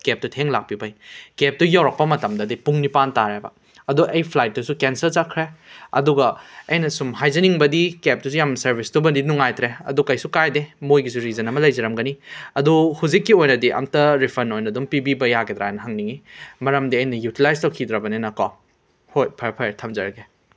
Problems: background sounds at intervals